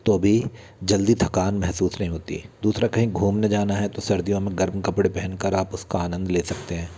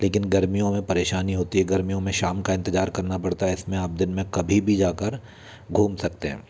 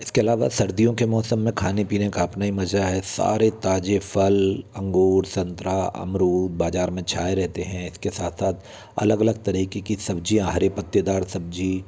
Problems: none marked